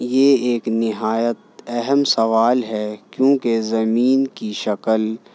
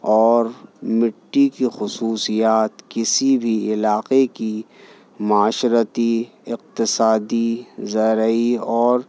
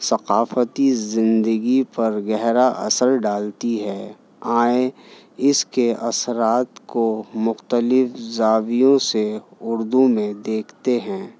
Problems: none marked